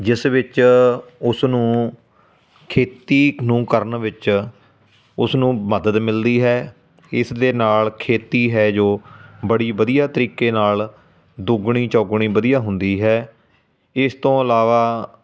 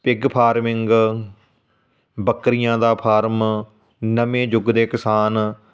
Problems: constant background noise